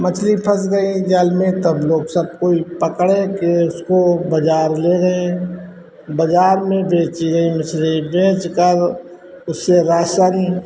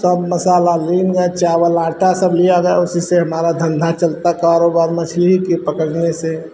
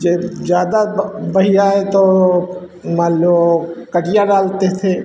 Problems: constant background noise